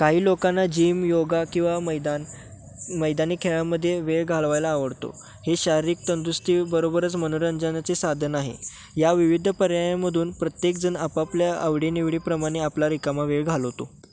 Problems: none marked